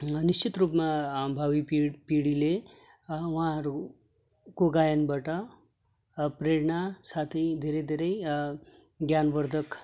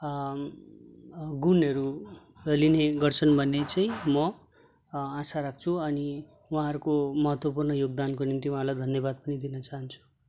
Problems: constant background noise